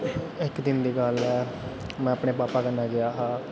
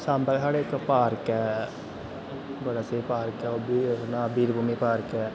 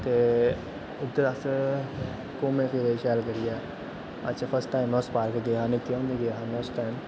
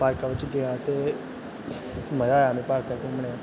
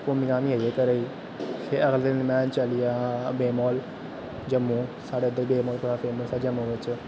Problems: constant background noise